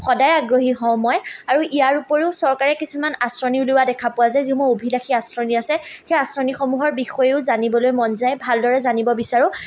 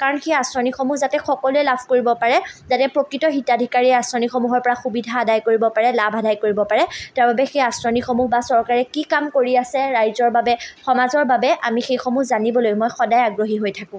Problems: none marked